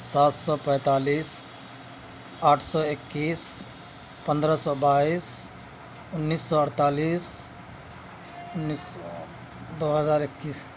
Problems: constant background noise, background conversations at intervals